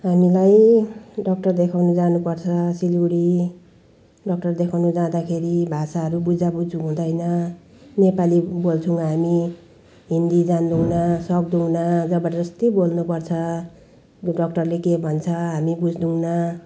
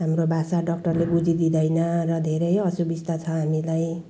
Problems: background sounds at intervals